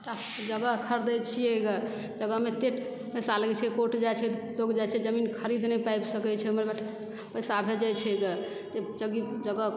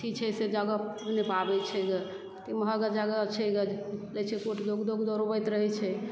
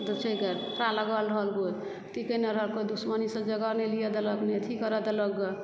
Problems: background sounds at intervals, low volume